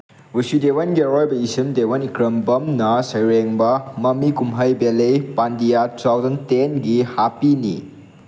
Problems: background sounds at intervals